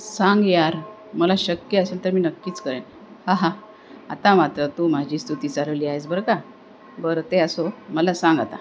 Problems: constant background noise